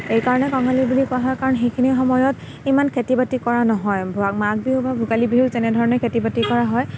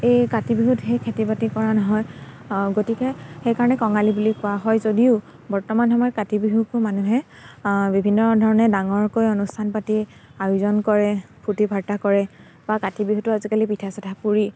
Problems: constant background noise